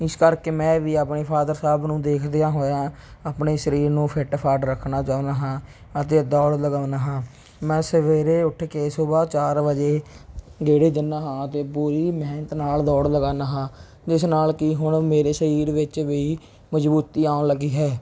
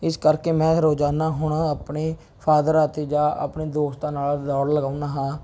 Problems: none marked